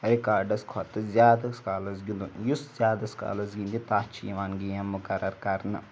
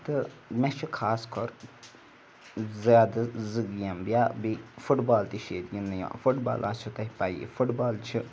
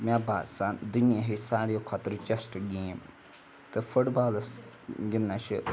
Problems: background sounds at intervals